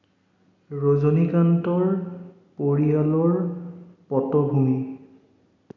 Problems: echo